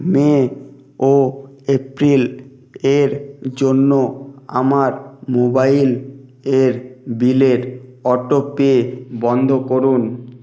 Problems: none marked